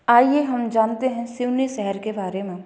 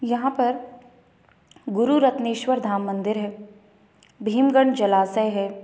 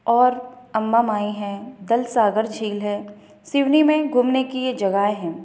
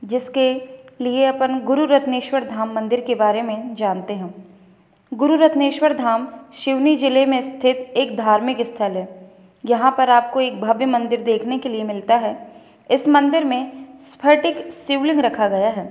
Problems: background sounds at intervals